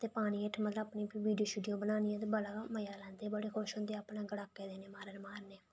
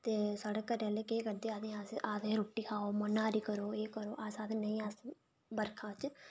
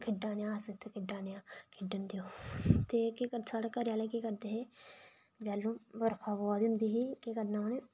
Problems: low volume